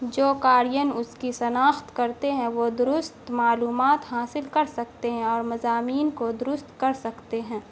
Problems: constant background noise